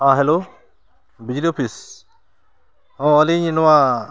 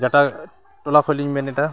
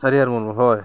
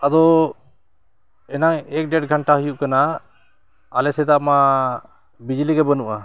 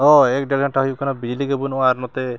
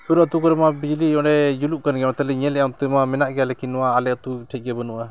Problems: background sounds at intervals